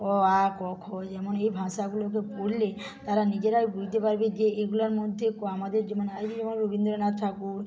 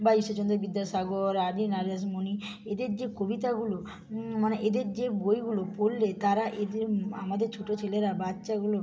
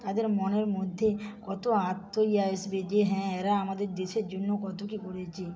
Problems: background sounds at intervals, background conversations at intervals, low volume